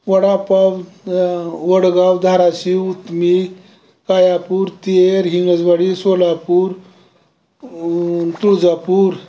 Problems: background sounds at intervals